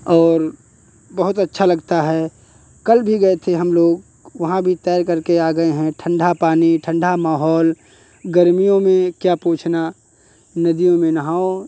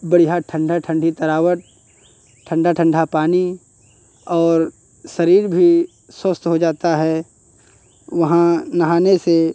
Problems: none marked